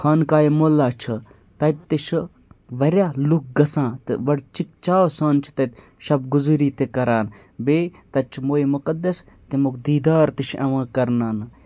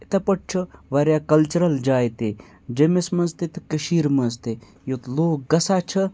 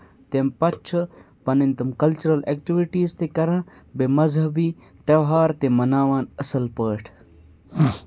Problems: none marked